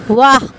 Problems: constant background noise, background conversations at intervals